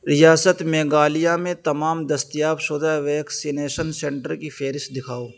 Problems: none marked